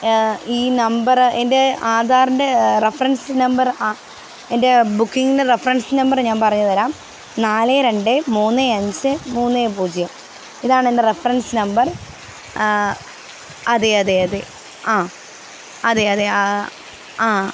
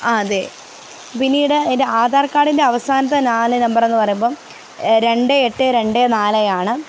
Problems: constant background noise